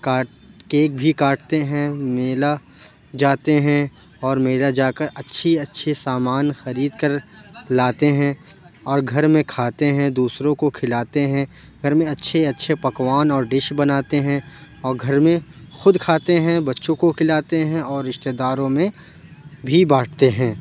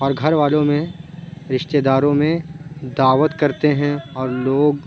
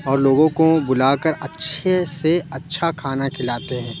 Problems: constant background noise, background conversations at intervals